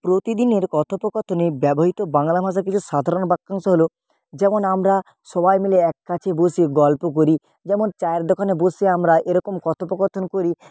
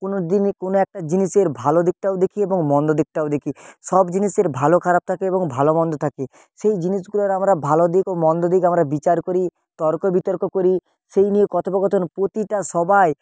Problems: background sounds at intervals